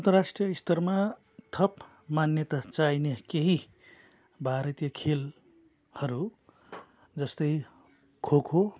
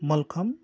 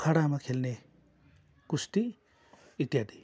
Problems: background sounds at intervals